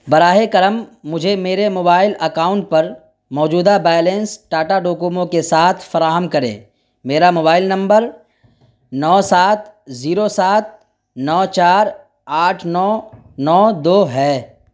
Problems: constant background noise